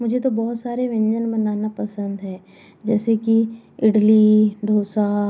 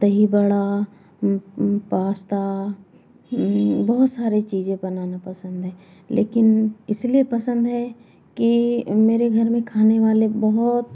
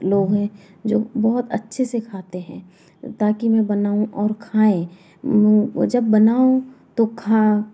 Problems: background sounds at intervals, background conversations at intervals